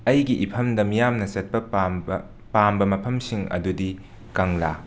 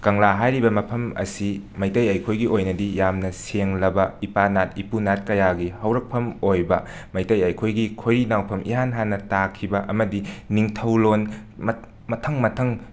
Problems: background sounds at intervals